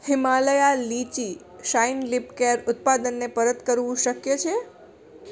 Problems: none marked